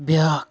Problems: none marked